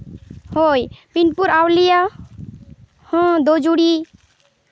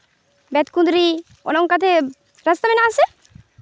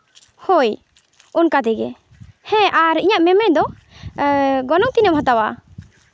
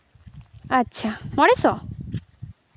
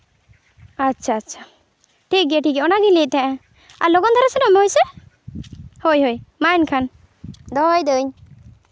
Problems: none marked